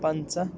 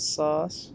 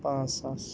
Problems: background sounds at intervals